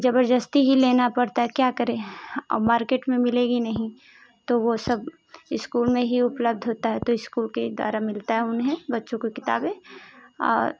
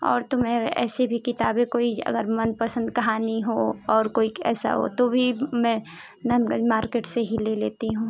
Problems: constant background noise